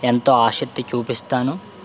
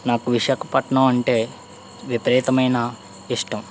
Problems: none marked